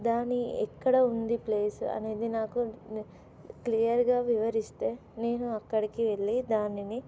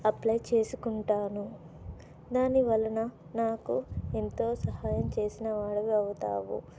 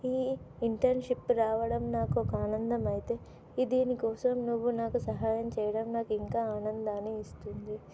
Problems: none marked